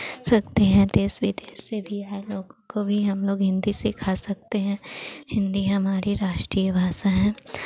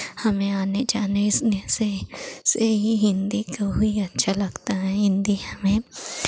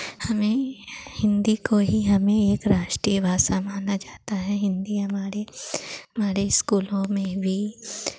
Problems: constant background noise